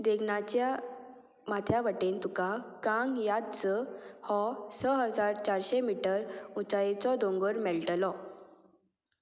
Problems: constant background noise